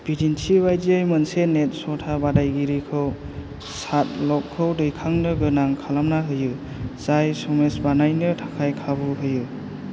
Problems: constant background noise